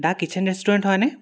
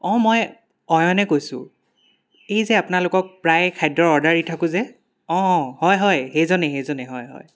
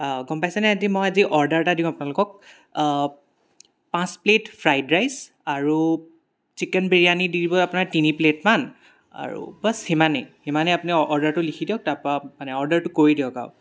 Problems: none marked